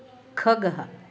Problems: constant background noise